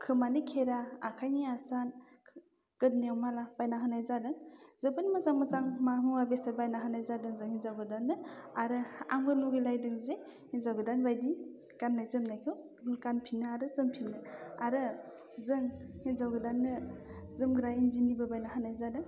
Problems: constant background noise